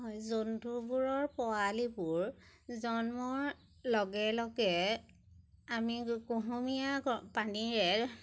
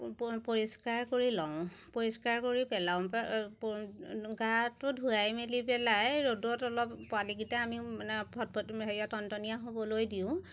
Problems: none marked